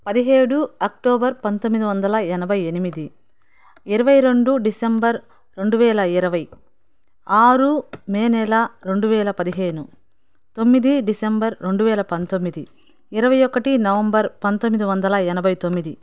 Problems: background sounds at intervals